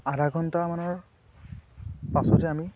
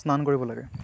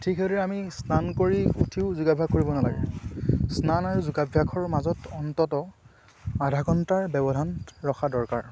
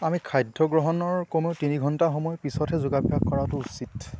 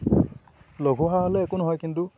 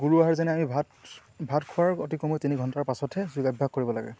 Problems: constant background noise